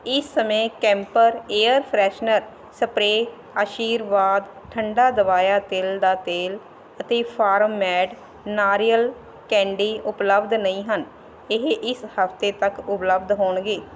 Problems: constant background noise